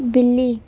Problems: none marked